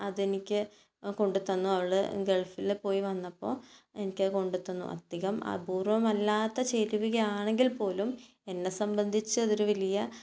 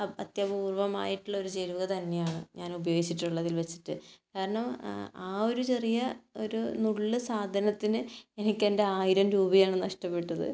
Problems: none marked